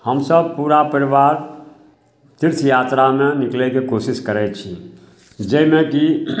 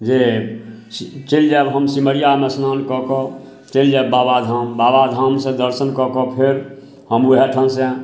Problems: none marked